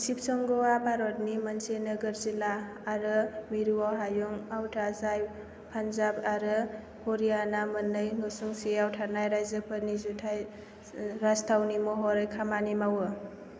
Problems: low volume